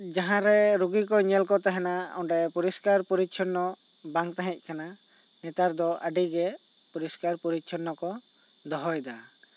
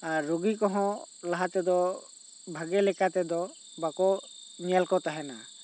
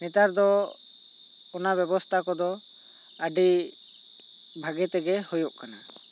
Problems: none marked